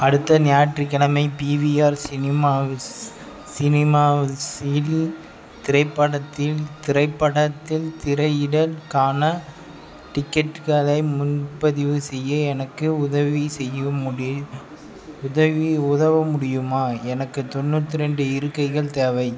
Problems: none marked